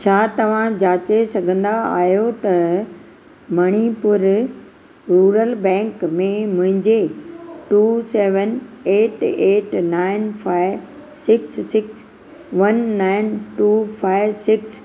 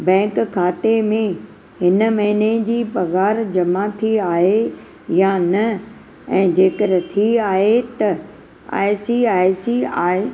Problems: none marked